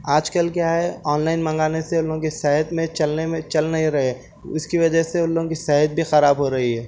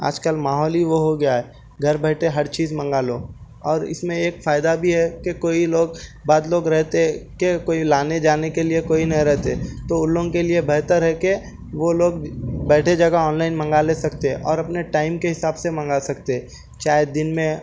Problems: background sounds at intervals